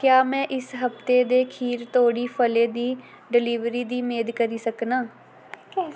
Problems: background sounds at intervals